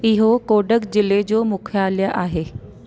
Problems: constant background noise, echo